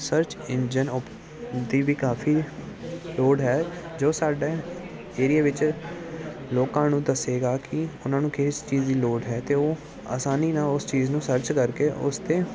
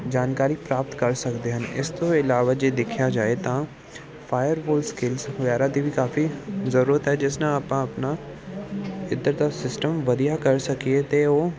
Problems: none marked